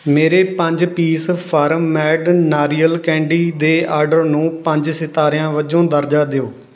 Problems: none marked